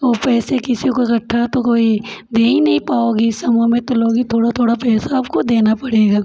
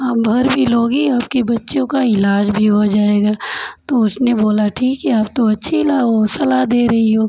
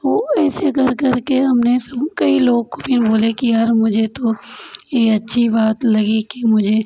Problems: constant background noise, background conversations at intervals